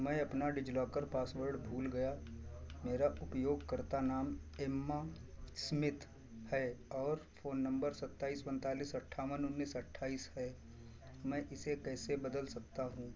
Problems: background sounds at intervals